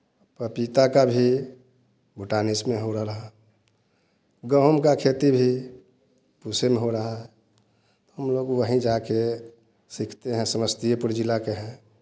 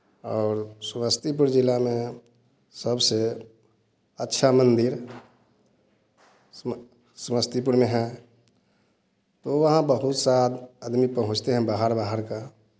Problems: none marked